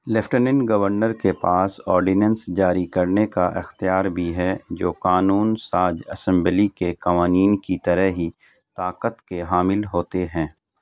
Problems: none marked